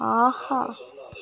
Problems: background sounds at intervals